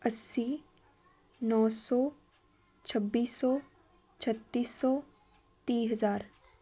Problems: continuous background conversations